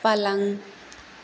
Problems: constant background noise